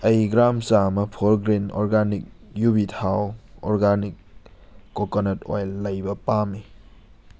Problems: background sounds at intervals